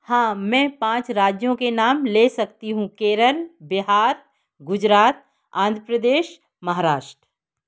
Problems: none marked